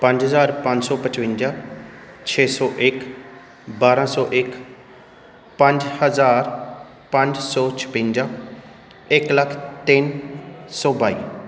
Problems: background sounds at intervals